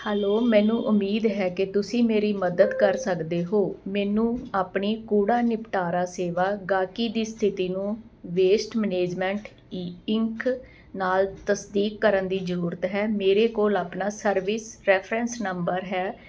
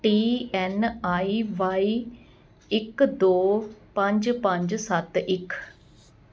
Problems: none marked